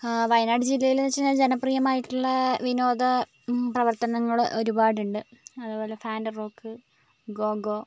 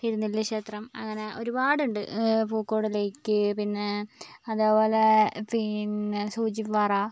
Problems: background sounds at intervals